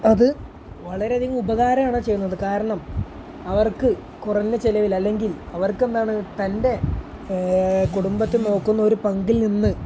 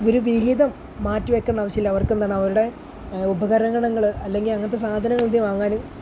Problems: none marked